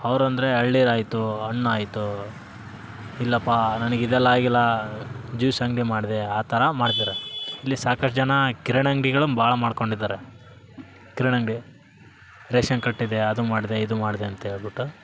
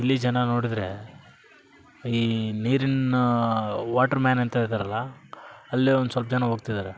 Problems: background sounds at intervals